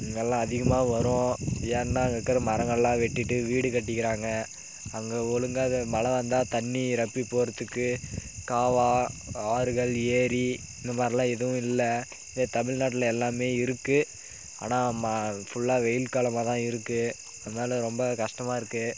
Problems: constant background noise